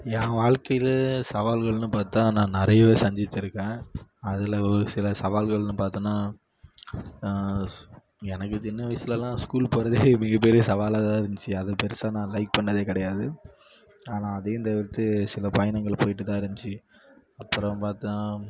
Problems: background sounds at intervals